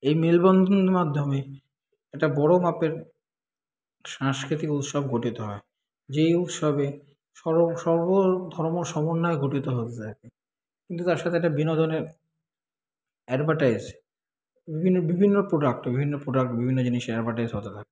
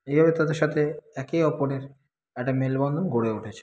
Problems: constant background noise